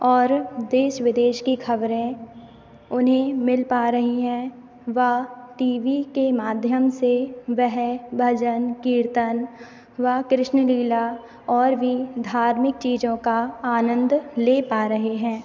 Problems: constant background noise